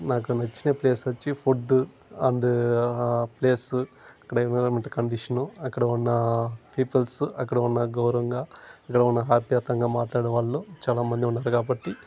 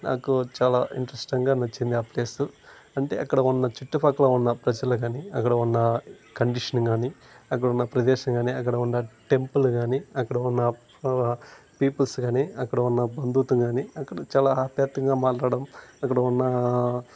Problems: constant background noise